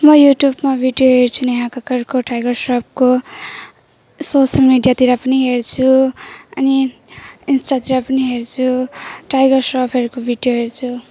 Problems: none marked